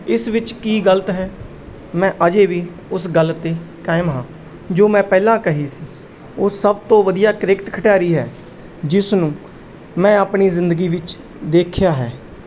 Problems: none marked